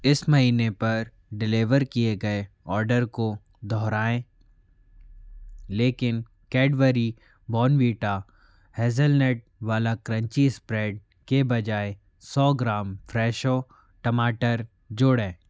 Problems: constant background noise